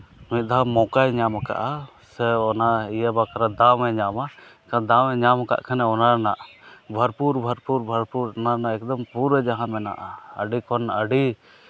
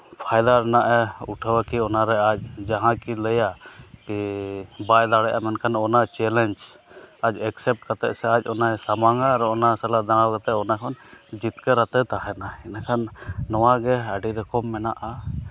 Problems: constant background noise